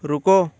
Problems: constant background noise